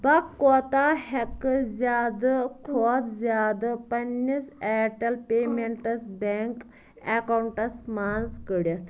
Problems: background sounds at intervals